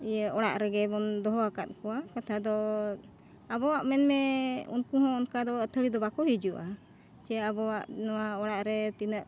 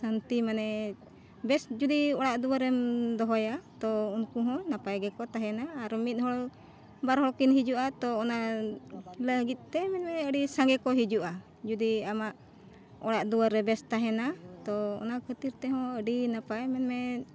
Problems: none marked